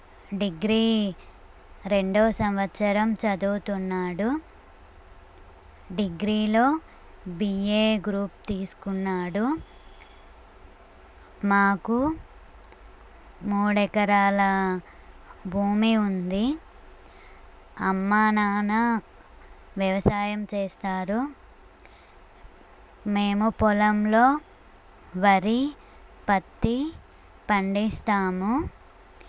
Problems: none marked